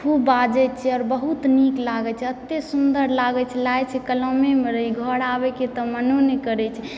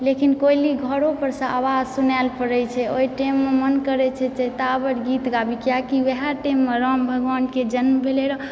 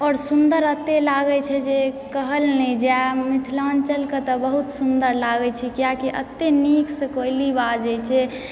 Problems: background sounds at intervals